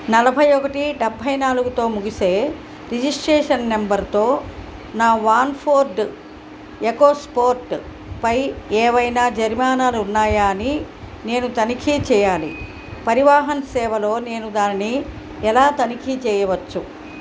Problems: none marked